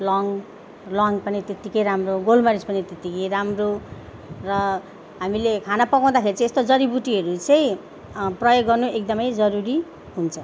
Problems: none marked